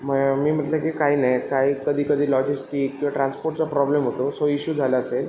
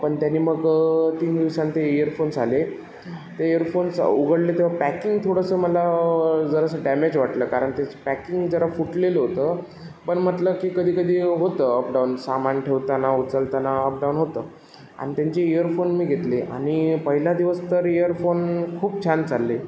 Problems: constant background noise, echo